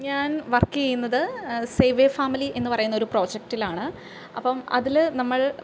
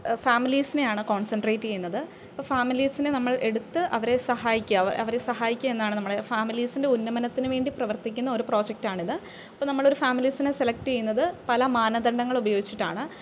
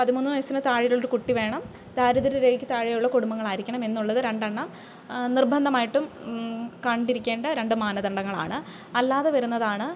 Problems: background sounds at intervals